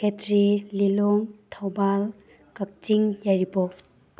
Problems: none marked